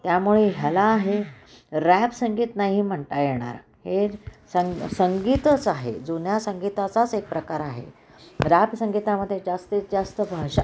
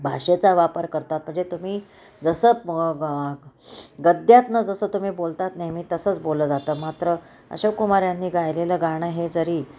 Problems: constant background noise